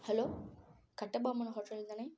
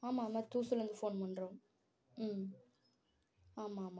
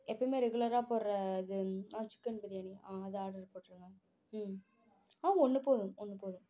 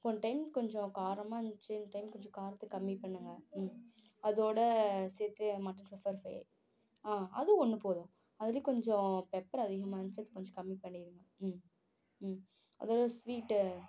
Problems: low volume